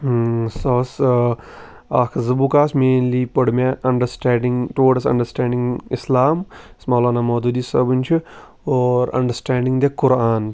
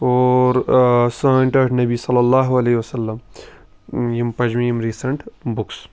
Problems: background sounds at intervals